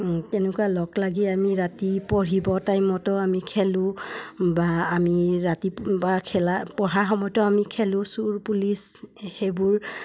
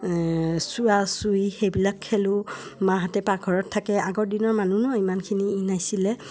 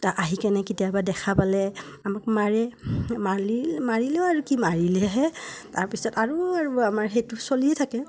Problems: none marked